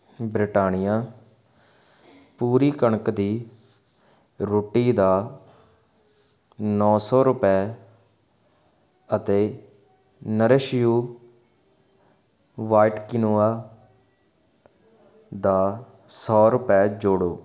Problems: constant background noise